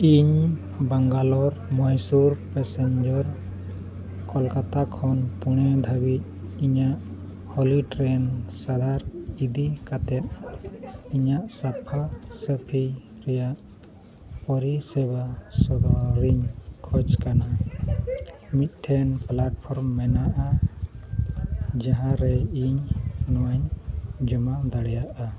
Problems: constant background noise, low volume